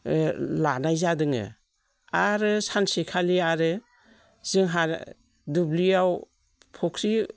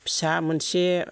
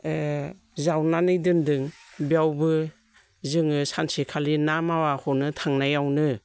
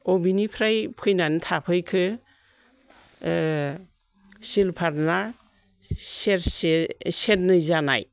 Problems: none marked